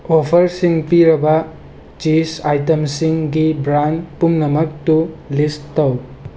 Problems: constant background noise